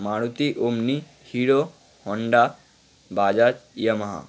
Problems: constant background noise